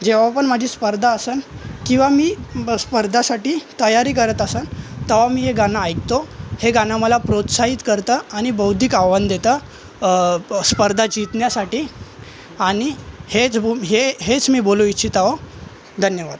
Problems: constant background noise, continuous background conversations